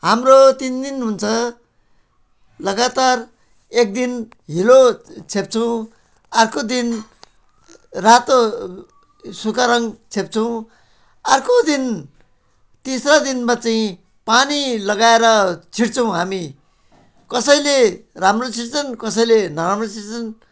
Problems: background sounds at intervals